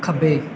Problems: none marked